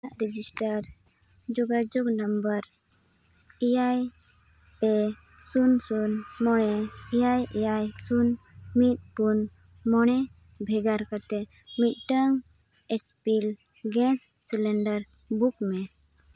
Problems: background sounds at intervals